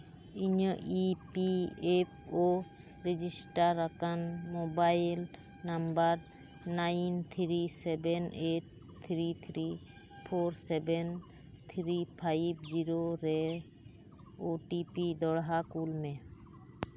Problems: background sounds at intervals